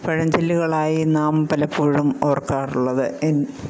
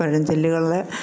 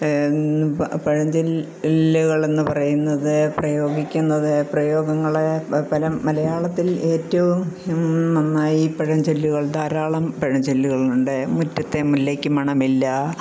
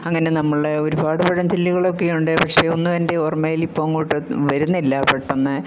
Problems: constant background noise